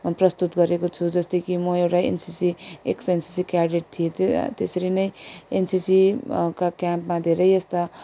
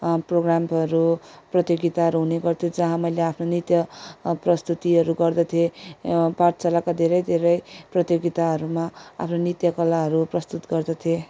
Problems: none marked